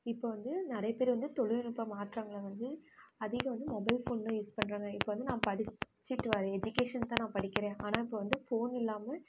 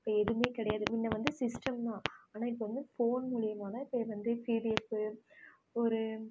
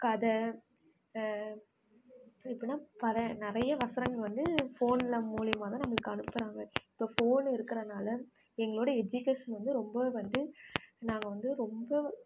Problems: constant background noise